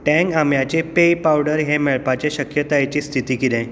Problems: background sounds at intervals, echo